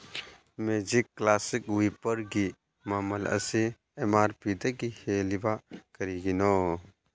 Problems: none marked